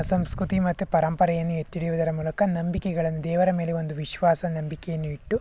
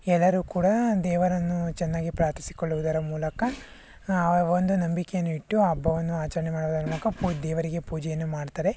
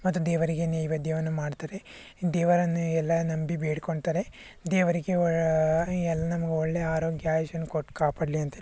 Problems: background sounds at intervals